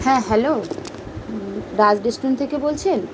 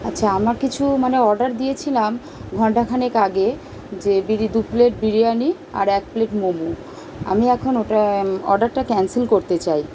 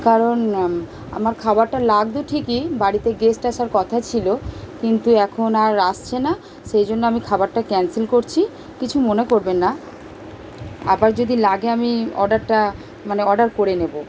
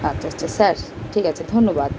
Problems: none marked